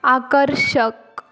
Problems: none marked